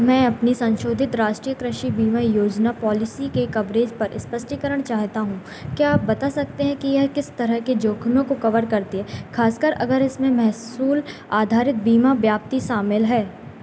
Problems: constant background noise